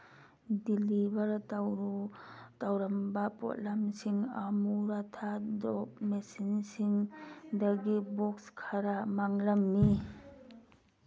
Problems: constant background noise